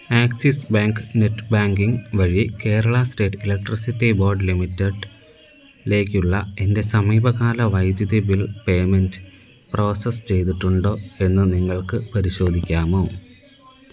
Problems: background sounds at intervals